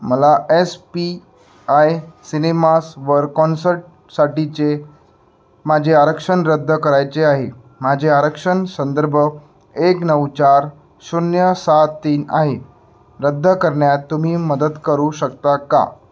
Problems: none marked